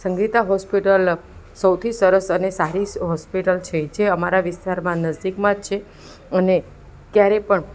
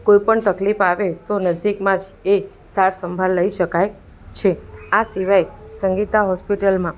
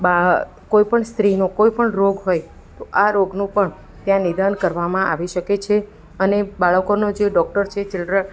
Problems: background sounds at intervals